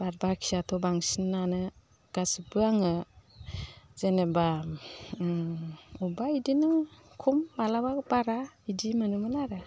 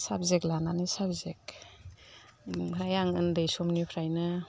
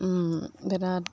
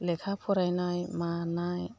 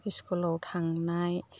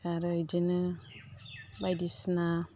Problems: none marked